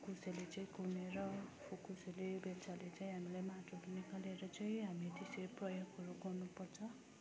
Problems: constant background noise, continuous background conversations